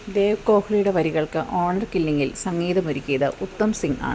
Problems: constant background noise